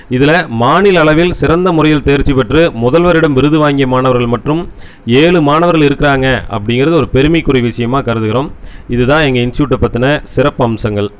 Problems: none marked